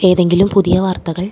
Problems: low volume